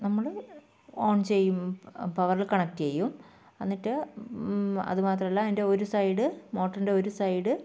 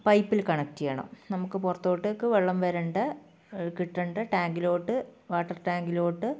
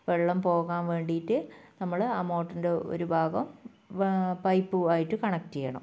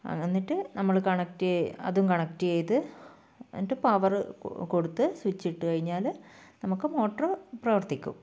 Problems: low volume